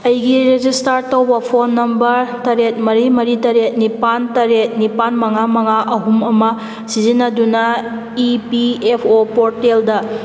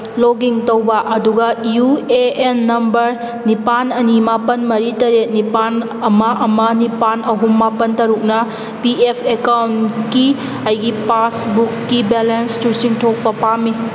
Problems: background sounds at intervals